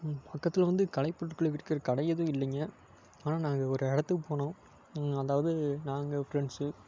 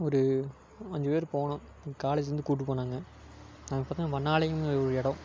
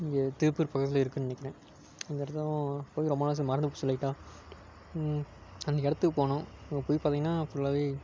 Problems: constant background noise